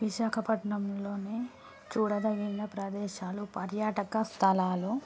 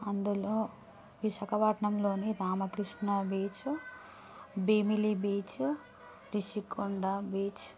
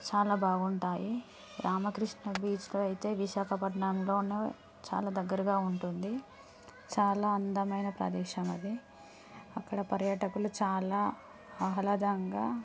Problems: constant background noise, low volume